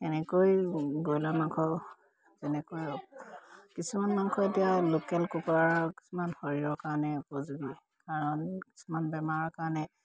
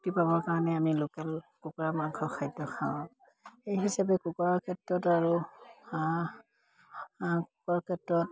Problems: none marked